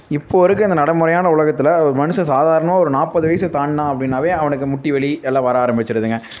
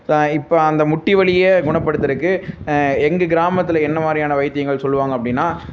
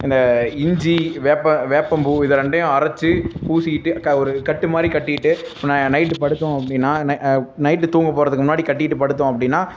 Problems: constant background noise